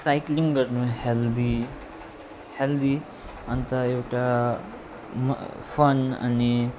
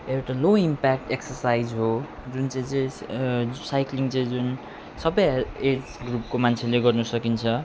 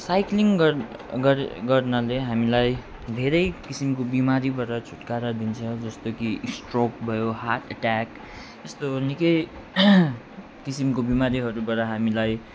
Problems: constant background noise